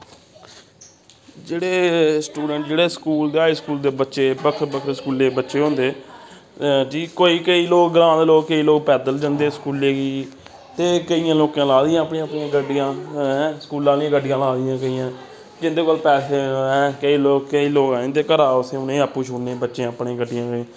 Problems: constant background noise